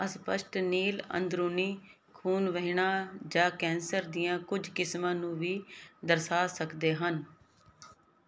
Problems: none marked